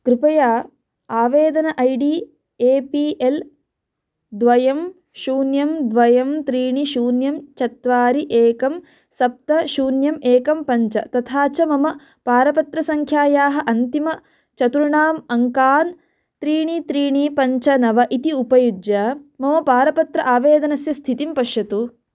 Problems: none marked